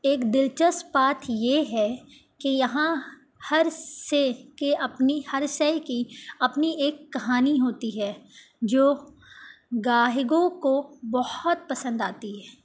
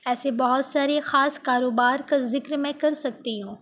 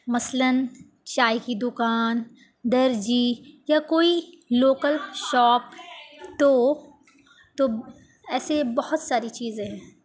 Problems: none marked